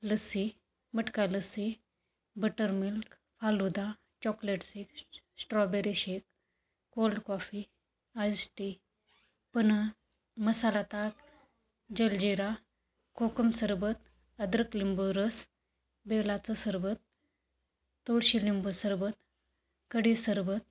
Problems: constant background noise